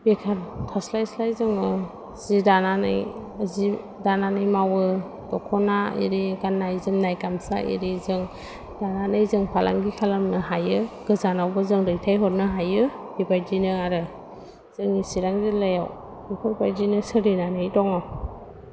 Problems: low volume